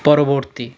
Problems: background conversations at intervals